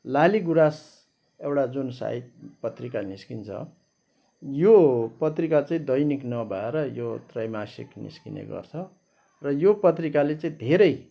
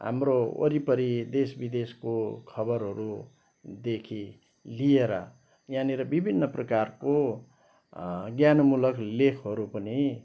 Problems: background sounds at intervals